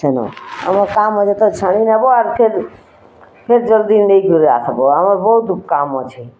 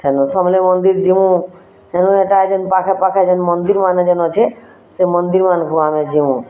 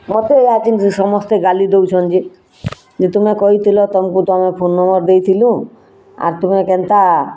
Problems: constant background noise